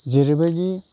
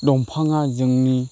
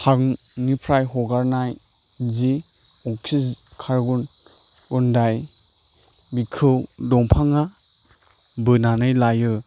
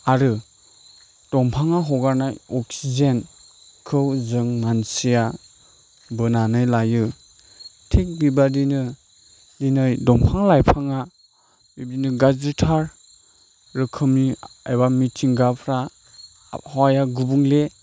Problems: background sounds at intervals